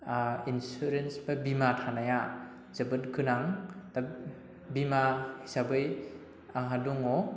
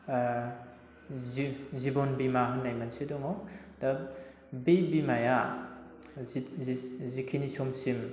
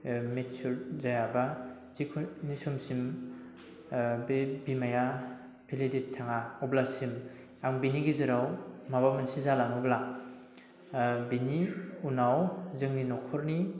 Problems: none marked